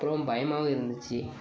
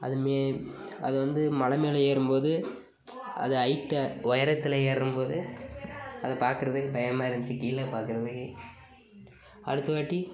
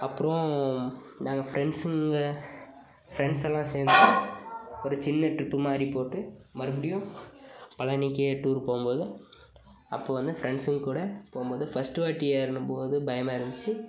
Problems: background sounds at intervals, background conversations at intervals